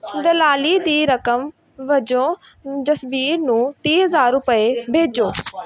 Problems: background sounds at intervals